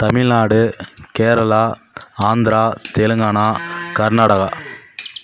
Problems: background sounds at intervals